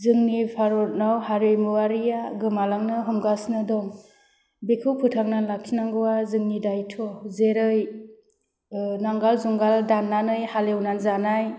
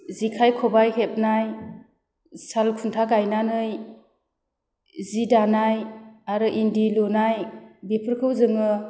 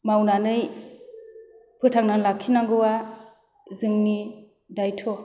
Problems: constant background noise